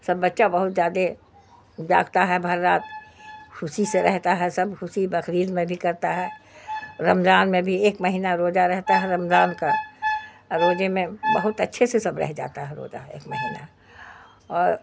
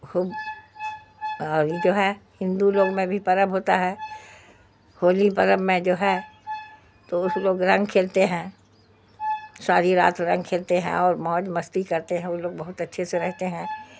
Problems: background sounds at intervals